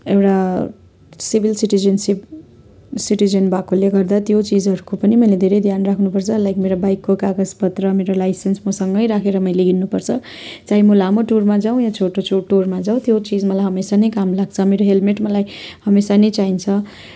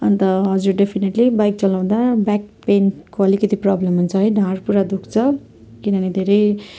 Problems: constant background noise